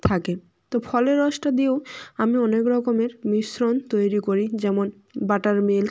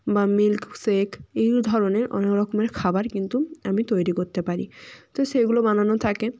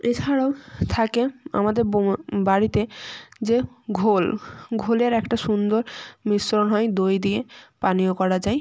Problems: background sounds at intervals